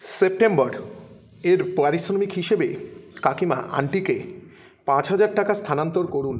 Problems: none marked